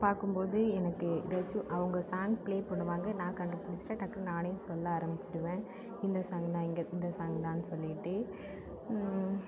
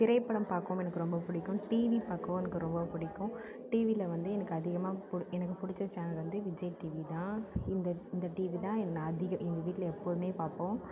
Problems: low volume